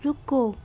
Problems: none marked